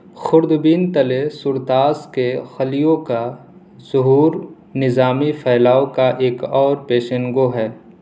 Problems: none marked